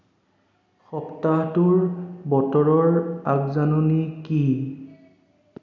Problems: echo